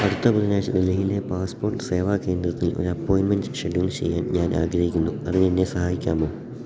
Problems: none marked